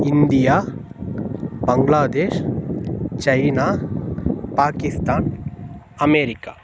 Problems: constant background noise